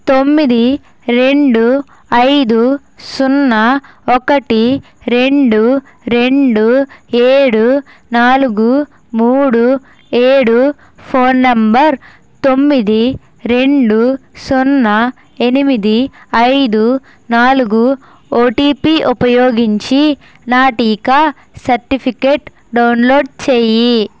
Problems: constant background noise